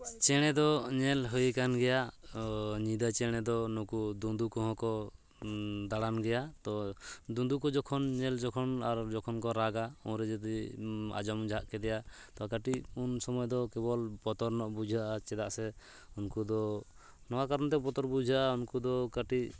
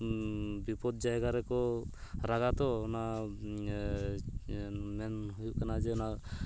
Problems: background sounds at intervals